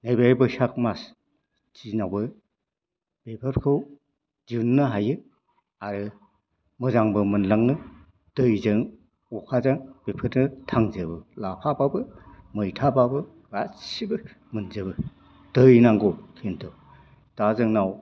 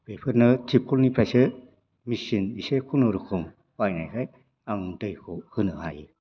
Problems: low volume